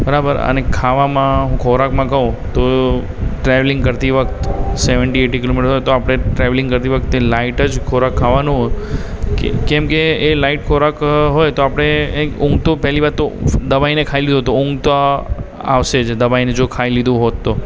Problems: constant background noise, background conversations at intervals